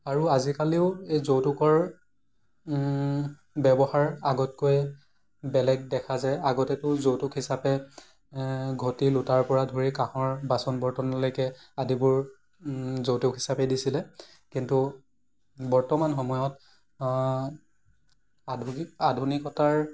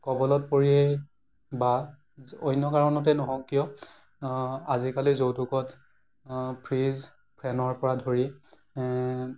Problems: none marked